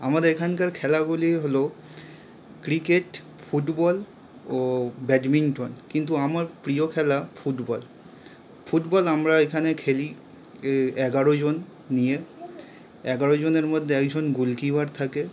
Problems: constant background noise